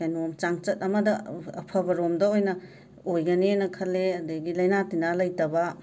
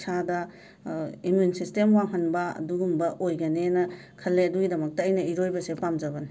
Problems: background conversations at intervals